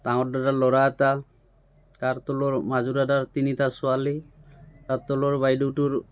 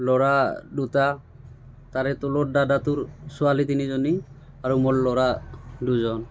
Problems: constant background noise, background conversations at intervals